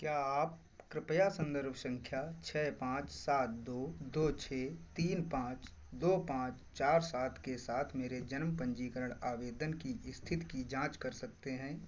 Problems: constant background noise